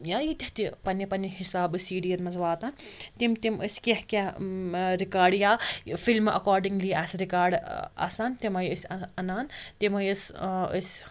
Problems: constant background noise